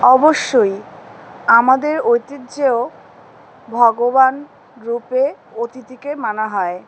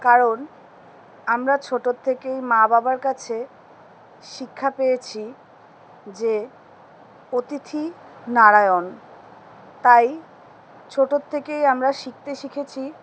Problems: constant background noise